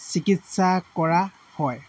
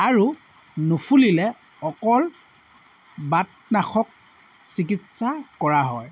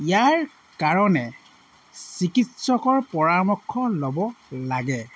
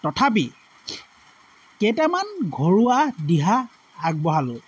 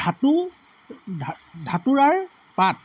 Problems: constant background noise